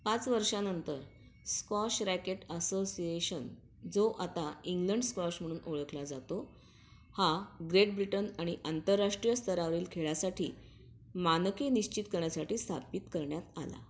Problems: none marked